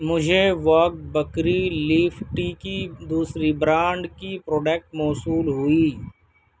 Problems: none marked